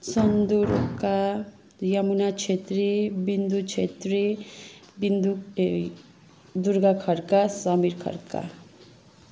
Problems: constant background noise